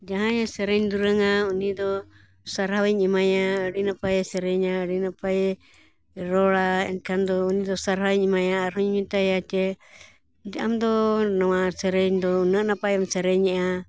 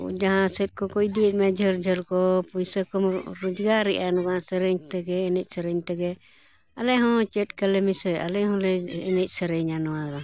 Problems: background sounds at intervals, background conversations at intervals